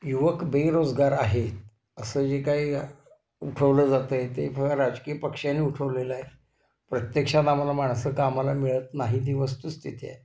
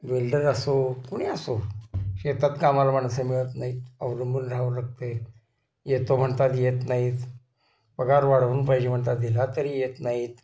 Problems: constant background noise, continuous background conversations